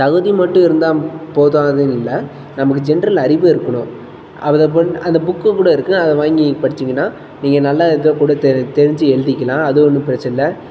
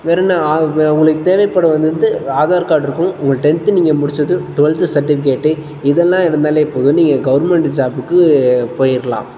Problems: constant background noise